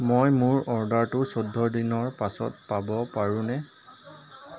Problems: constant background noise, background conversations at intervals